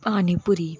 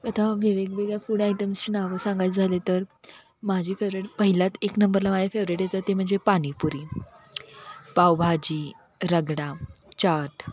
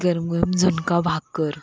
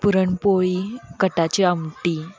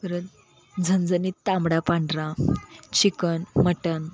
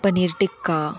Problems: constant background noise, continuous background conversations